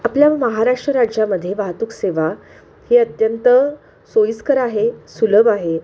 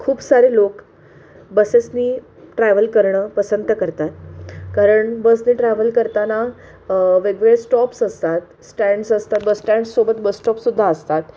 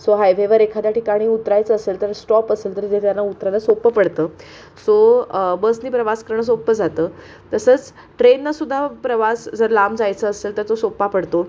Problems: background sounds at intervals